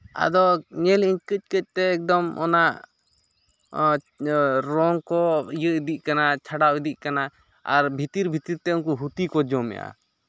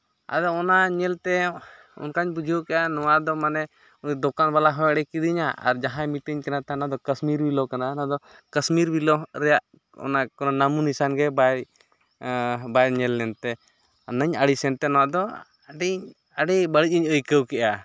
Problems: background sounds at intervals